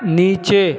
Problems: constant background noise